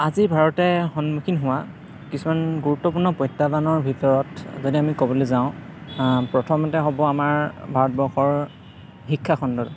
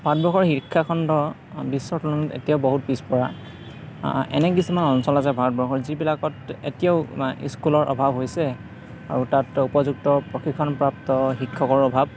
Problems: none marked